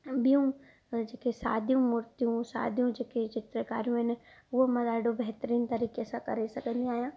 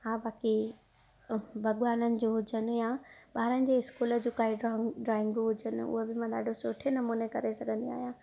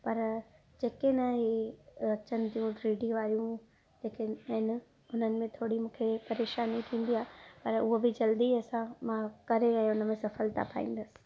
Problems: none marked